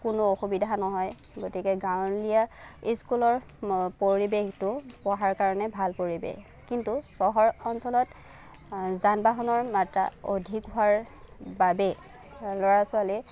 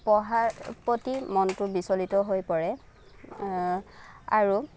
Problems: none marked